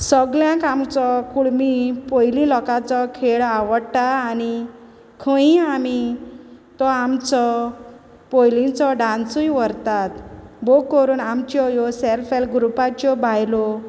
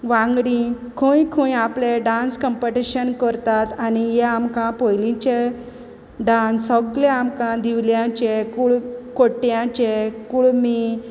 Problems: constant background noise